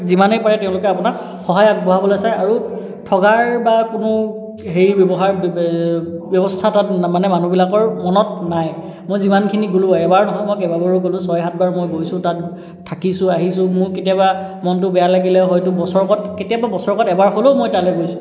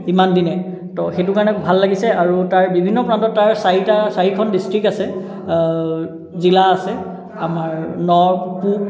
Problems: background conversations at intervals, echo